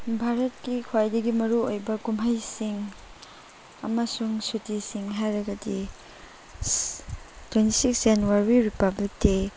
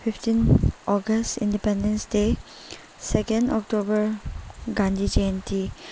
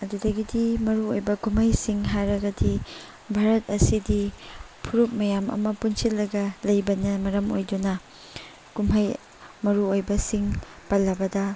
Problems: background sounds at intervals, background conversations at intervals